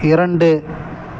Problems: none marked